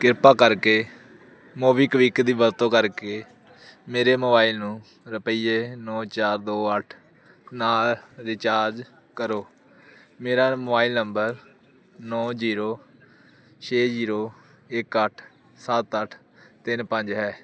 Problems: none marked